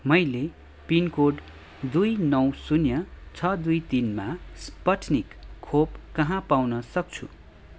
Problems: background sounds at intervals